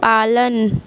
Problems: constant background noise